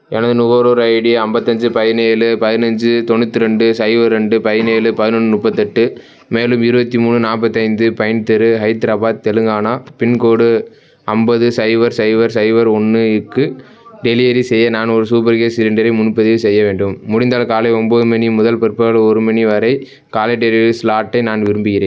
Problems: background sounds at intervals, background conversations at intervals